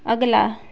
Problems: constant background noise